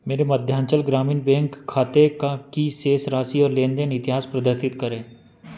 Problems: none marked